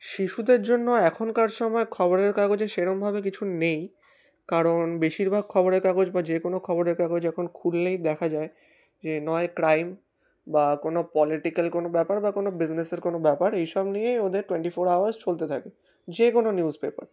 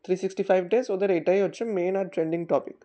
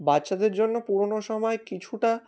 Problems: background sounds at intervals